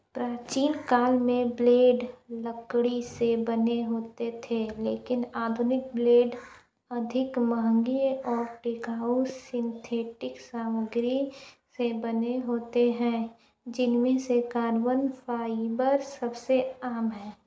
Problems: low volume